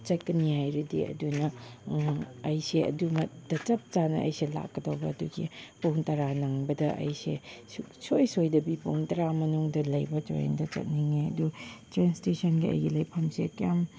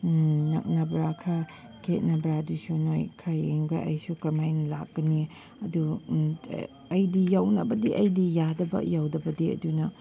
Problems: constant background noise